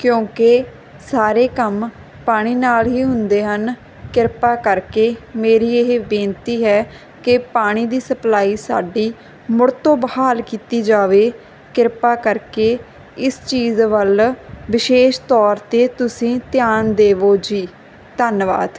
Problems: background sounds at intervals